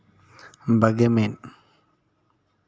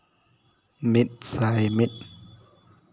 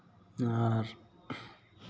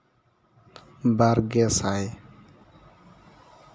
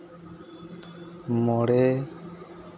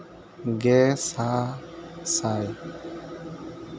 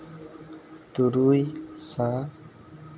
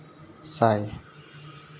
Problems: constant background noise